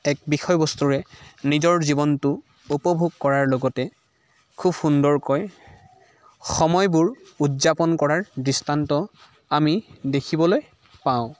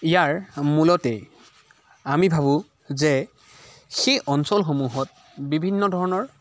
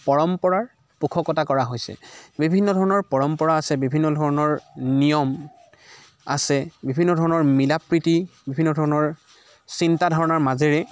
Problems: constant background noise